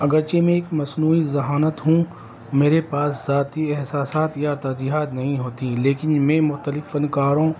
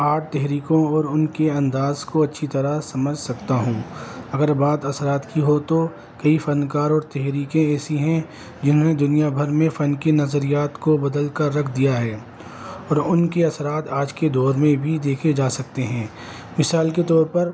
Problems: constant background noise